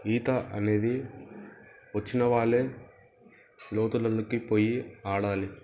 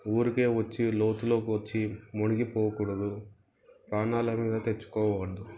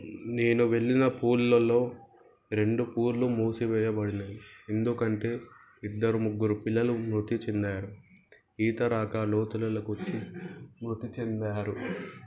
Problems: background sounds at intervals